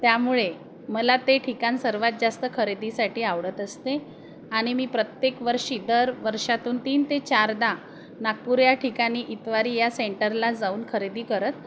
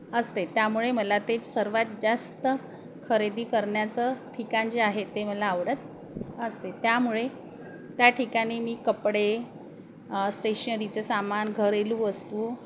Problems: constant background noise, background conversations at intervals